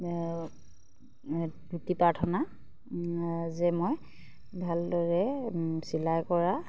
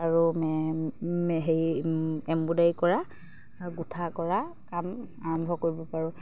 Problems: none marked